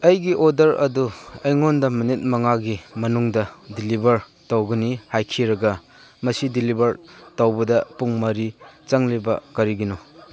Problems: background sounds at intervals, background conversations at intervals